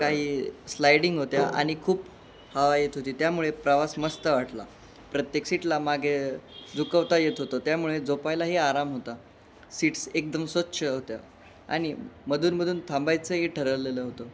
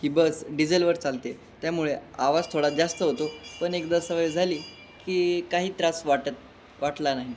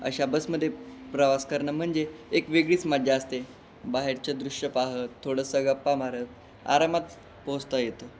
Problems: none marked